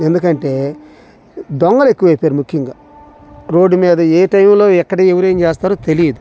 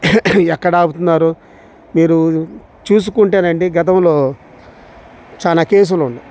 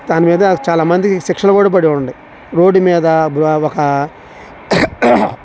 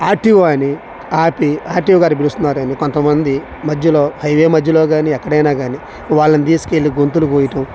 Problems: none marked